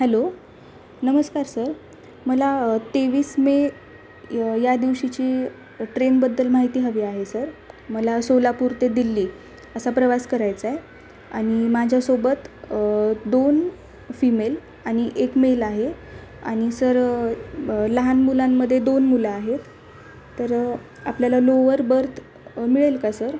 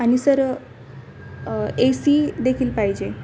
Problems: constant background noise